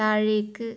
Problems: none marked